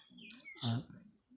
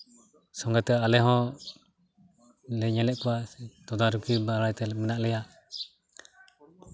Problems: background sounds at intervals